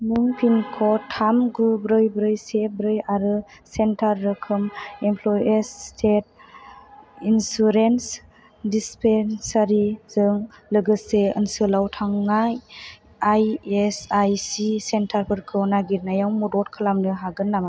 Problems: none marked